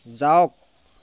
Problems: none marked